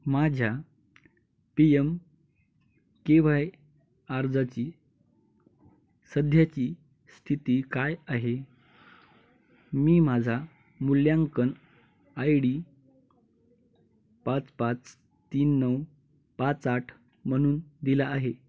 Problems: none marked